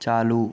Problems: constant background noise